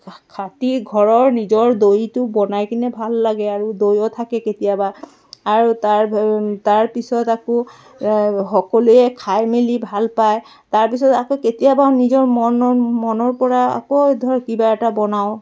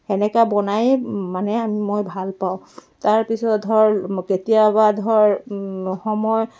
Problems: background sounds at intervals, continuous background conversations